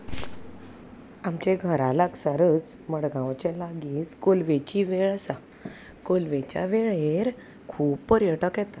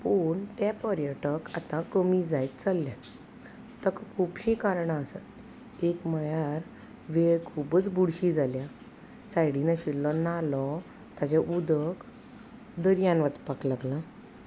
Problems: none marked